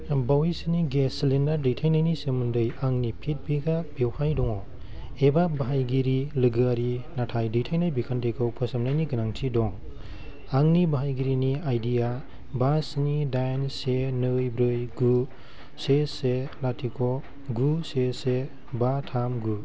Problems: none marked